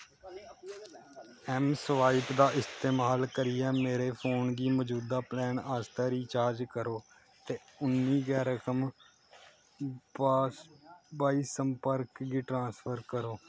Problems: constant background noise